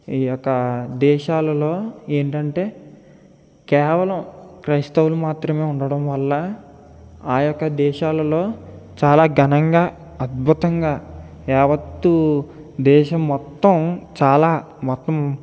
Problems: none marked